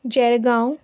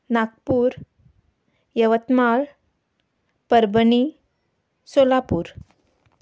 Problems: none marked